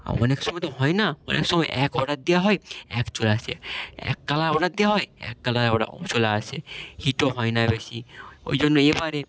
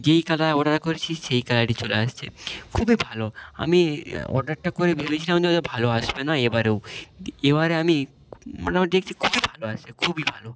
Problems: background sounds at intervals